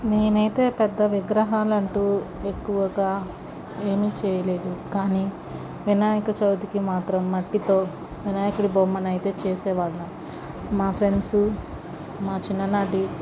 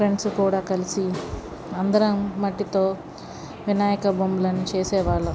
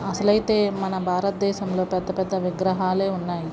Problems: none marked